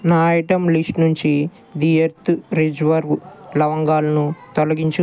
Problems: background conversations at intervals